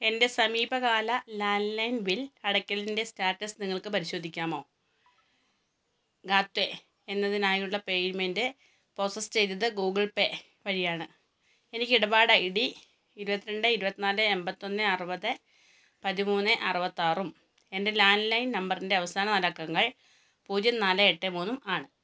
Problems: none marked